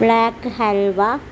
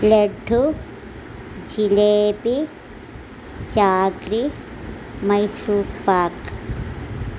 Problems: none marked